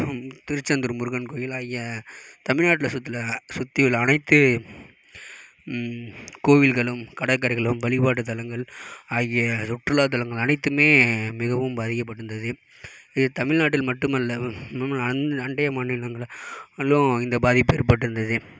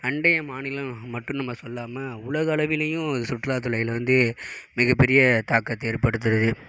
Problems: none marked